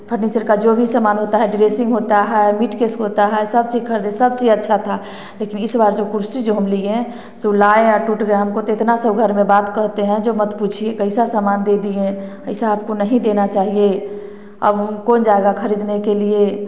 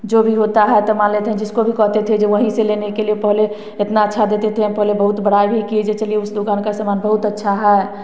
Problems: none marked